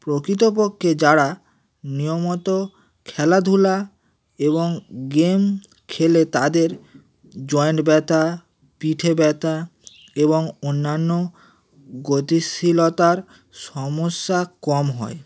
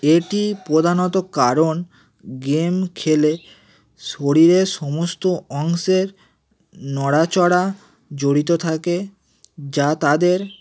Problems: none marked